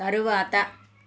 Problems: constant background noise